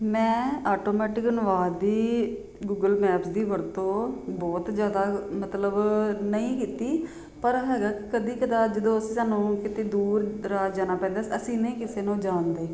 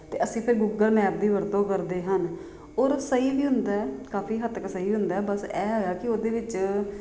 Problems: constant background noise